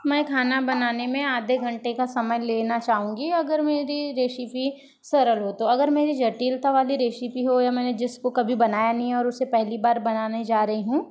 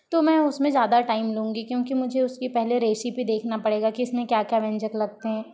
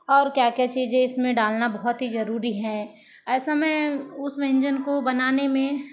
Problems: constant background noise, background conversations at intervals